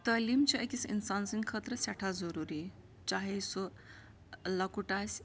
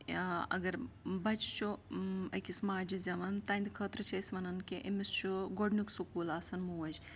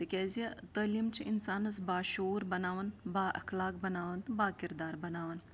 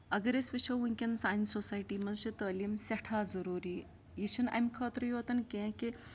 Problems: background sounds at intervals